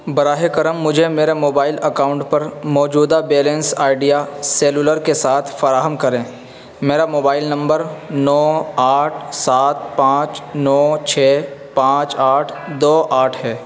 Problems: constant background noise